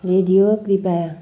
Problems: none marked